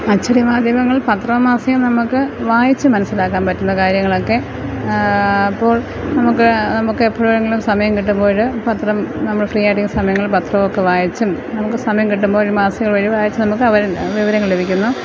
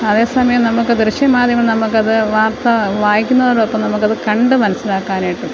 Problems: constant background noise, low volume